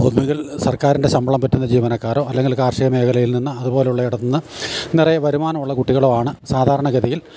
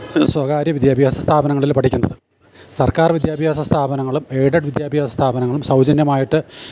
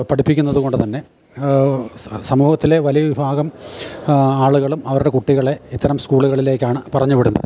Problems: none marked